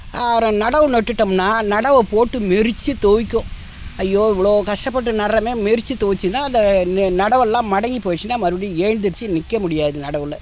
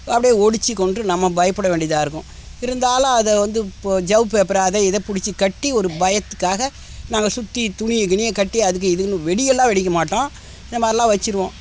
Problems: constant background noise